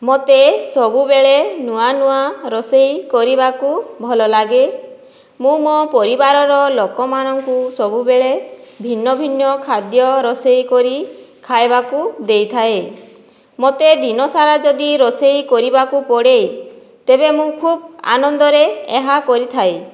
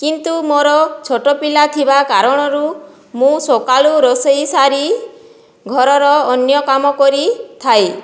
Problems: none marked